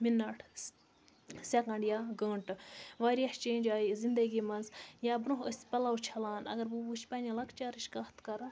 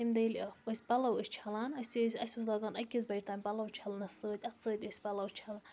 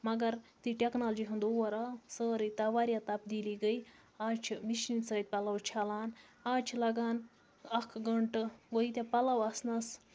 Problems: background sounds at intervals